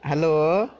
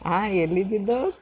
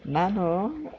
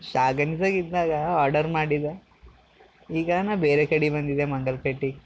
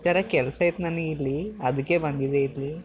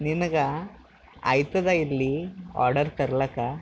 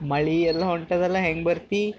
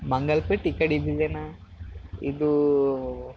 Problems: background sounds at intervals